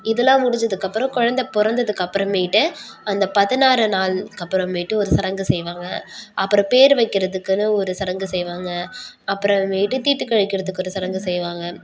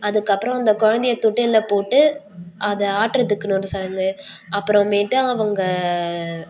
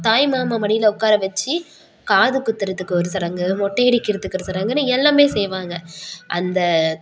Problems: background sounds at intervals